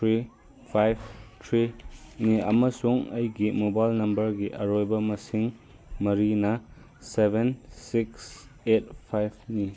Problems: background conversations at intervals